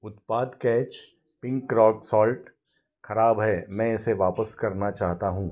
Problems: none marked